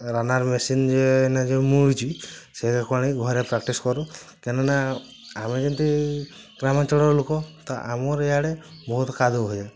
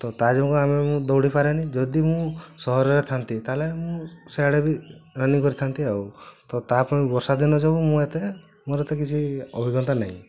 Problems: constant background noise